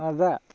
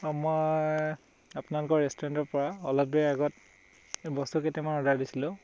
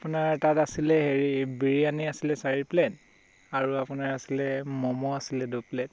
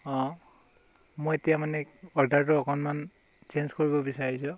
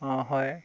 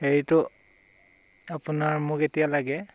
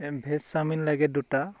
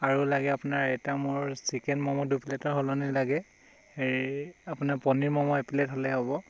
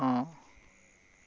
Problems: background sounds at intervals